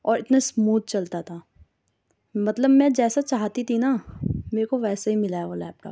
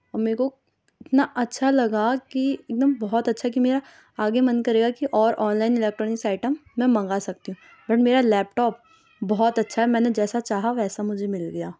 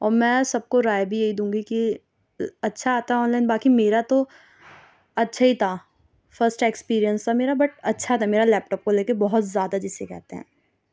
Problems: none marked